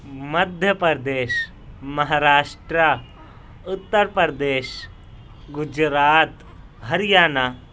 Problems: none marked